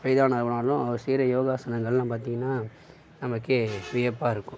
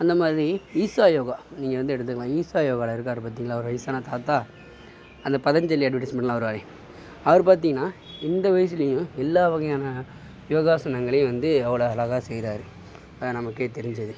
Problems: constant background noise